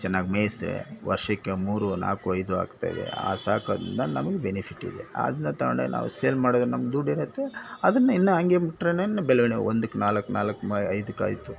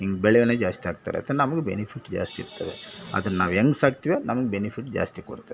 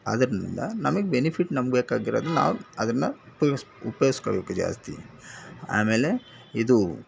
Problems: none marked